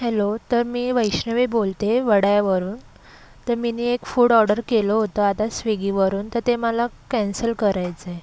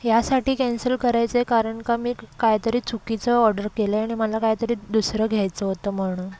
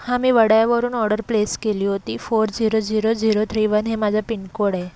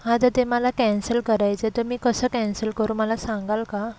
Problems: background sounds at intervals